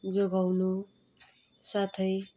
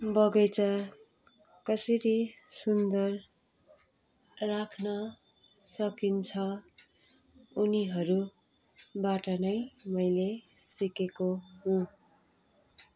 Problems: constant background noise